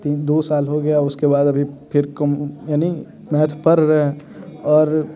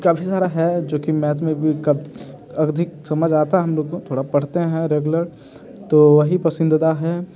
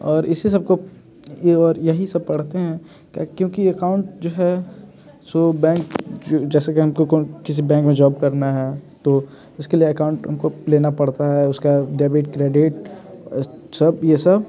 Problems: constant background noise